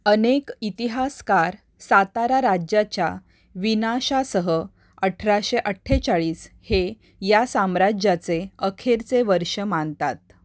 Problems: constant background noise